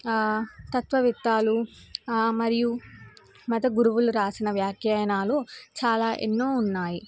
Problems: none marked